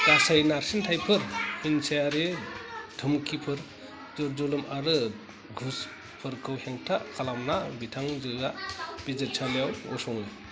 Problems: continuous background conversations